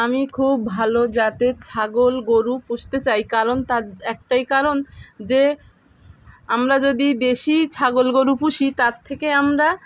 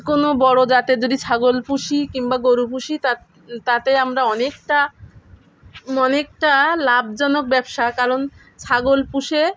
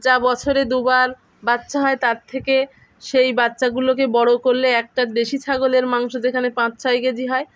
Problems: none marked